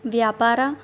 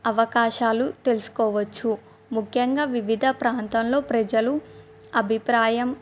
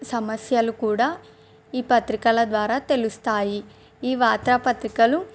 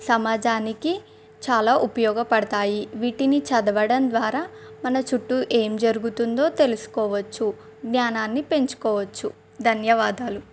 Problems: none marked